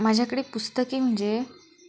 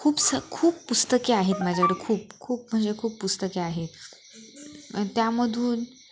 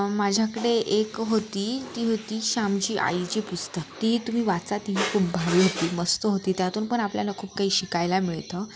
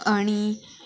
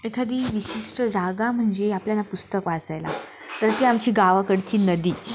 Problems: constant background noise, background conversations at intervals